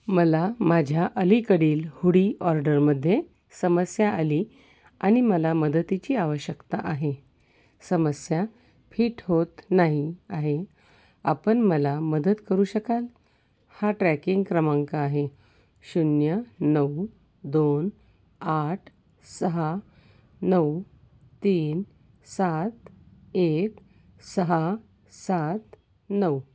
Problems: none marked